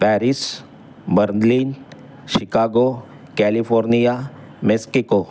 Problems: none marked